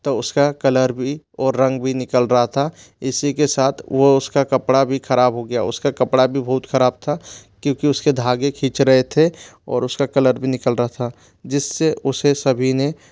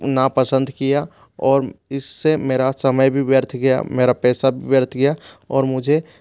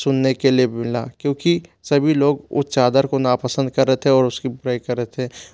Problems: none marked